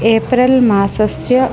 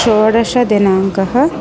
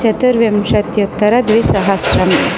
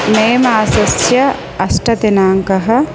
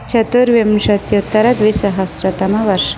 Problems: constant background noise